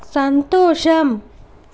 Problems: constant background noise